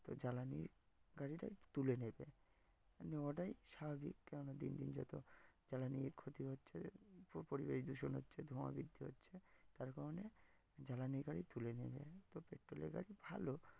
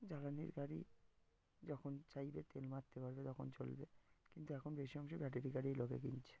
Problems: background sounds at intervals